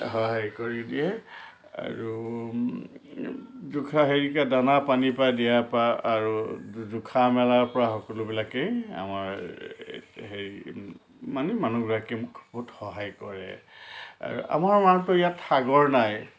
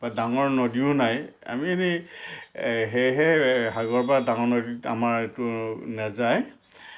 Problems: constant background noise